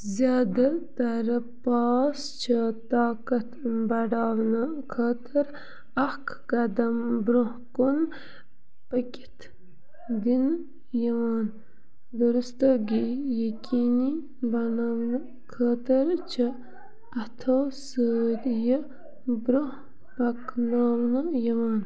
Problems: background sounds at intervals, low volume